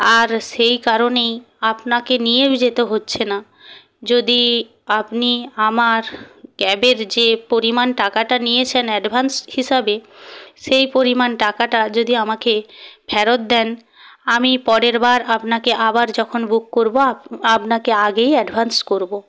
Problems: background sounds at intervals